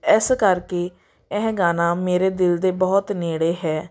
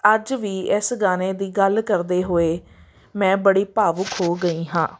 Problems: background sounds at intervals